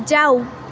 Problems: constant background noise